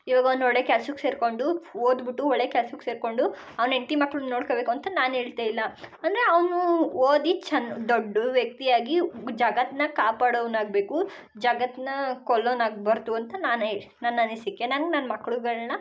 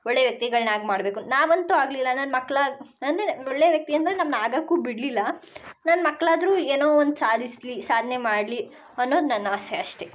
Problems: none marked